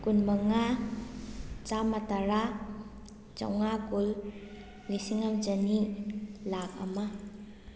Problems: none marked